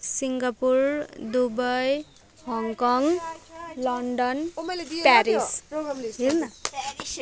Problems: continuous background conversations